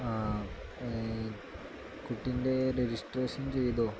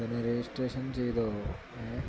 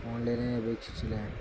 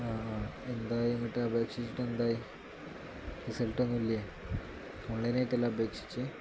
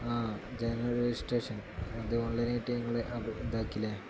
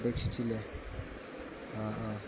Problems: constant background noise, low volume